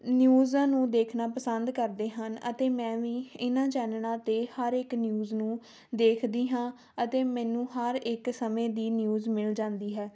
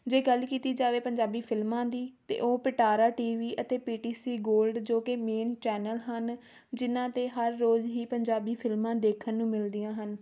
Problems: none marked